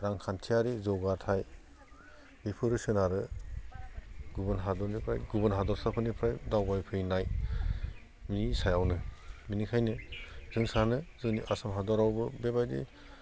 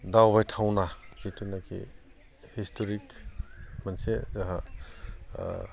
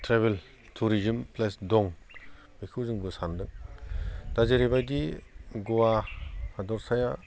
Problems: constant background noise